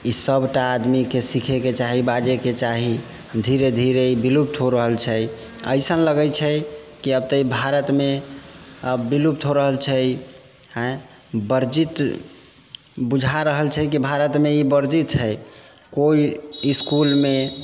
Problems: background sounds at intervals